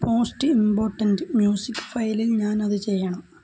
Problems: background sounds at intervals, low volume